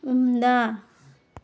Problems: background sounds at intervals